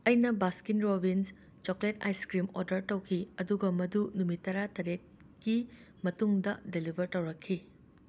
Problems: constant background noise